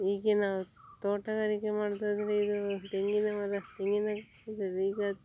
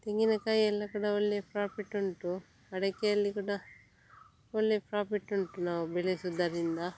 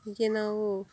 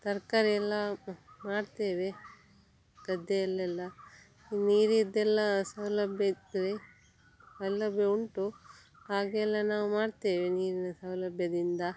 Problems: none marked